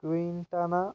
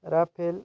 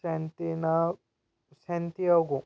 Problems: constant background noise